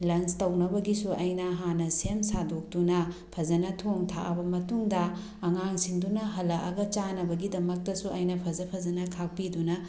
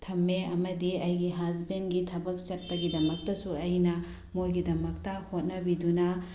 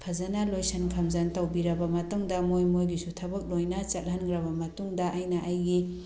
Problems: background sounds at intervals